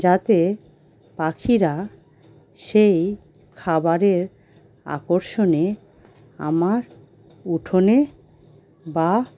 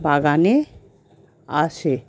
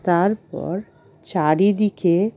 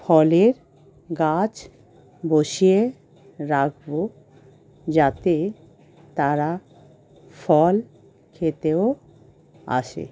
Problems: constant background noise